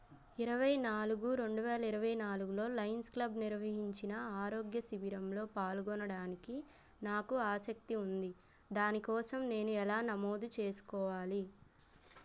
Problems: none marked